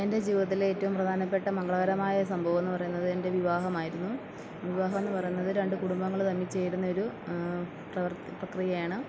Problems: background sounds at intervals